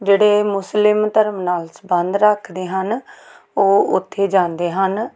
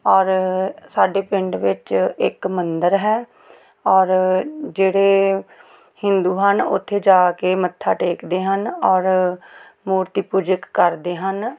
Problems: background sounds at intervals